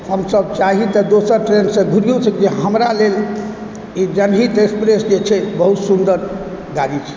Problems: background sounds at intervals